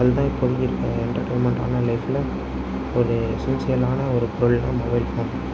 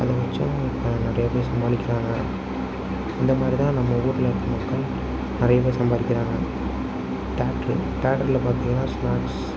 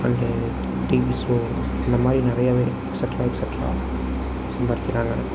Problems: none marked